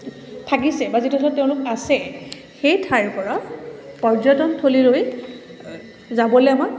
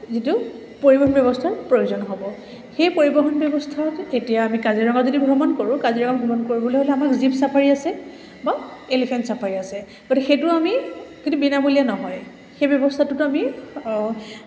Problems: none marked